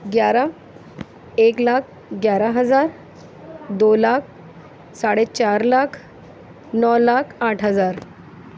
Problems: none marked